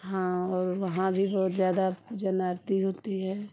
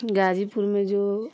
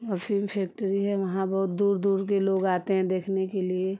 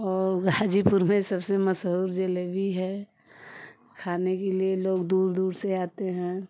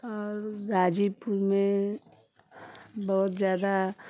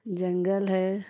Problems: constant background noise